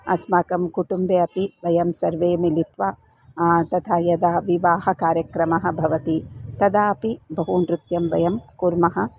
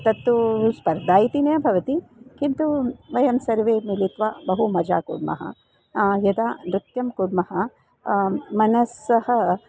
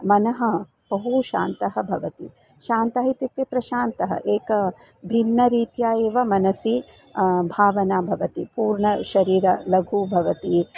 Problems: constant background noise, background conversations at intervals